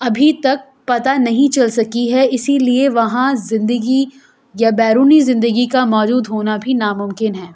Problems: constant background noise